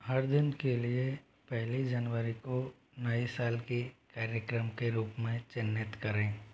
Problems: low volume